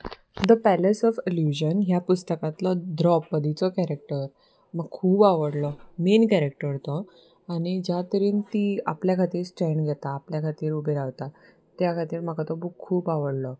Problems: none marked